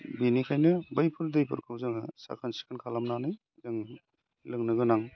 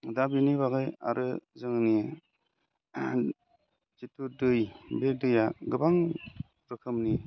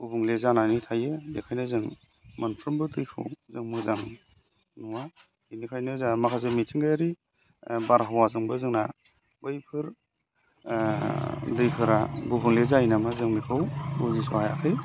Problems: constant background noise